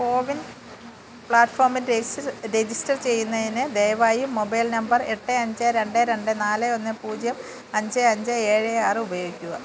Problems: constant background noise